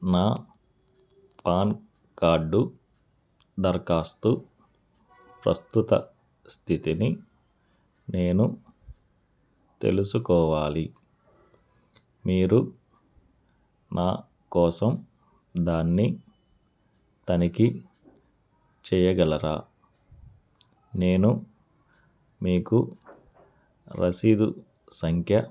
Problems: none marked